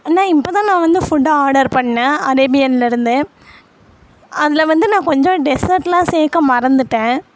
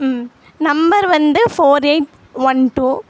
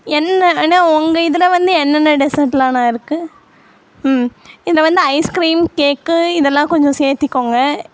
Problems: constant background noise